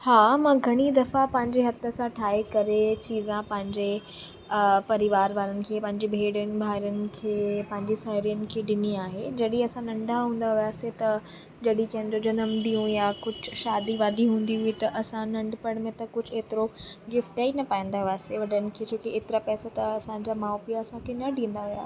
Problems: constant background noise